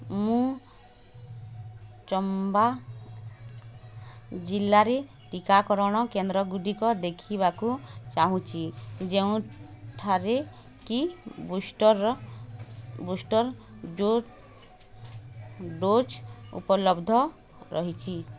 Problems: constant background noise